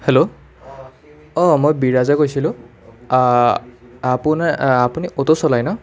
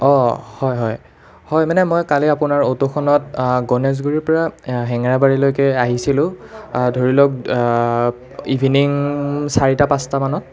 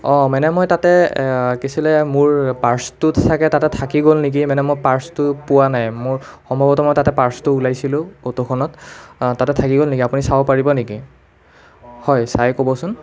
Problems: continuous background conversations